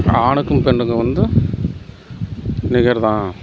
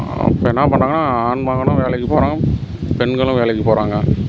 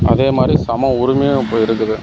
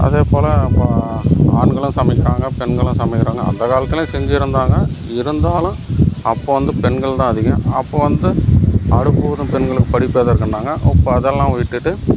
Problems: background sounds at intervals